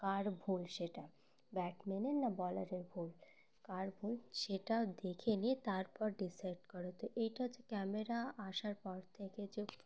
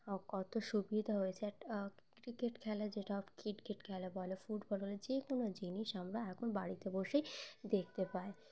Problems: constant background noise